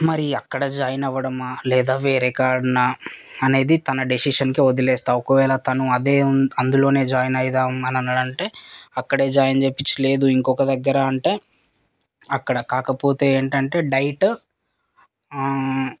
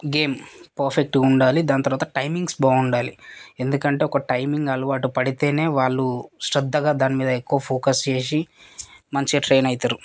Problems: constant background noise, background conversations at intervals